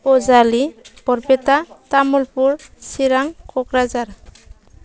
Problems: none marked